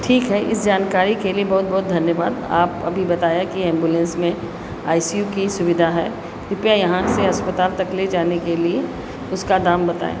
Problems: none marked